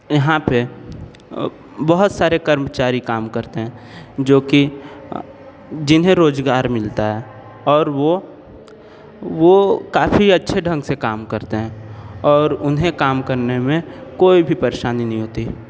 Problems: constant background noise